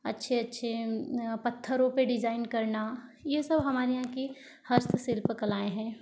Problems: low volume